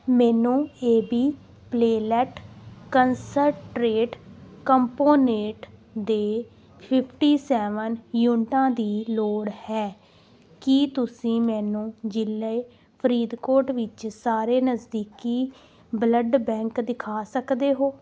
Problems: background sounds at intervals